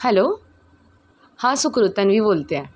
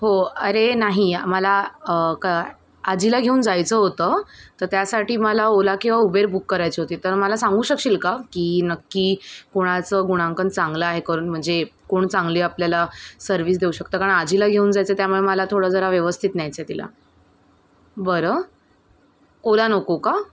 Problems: constant background noise, background conversations at intervals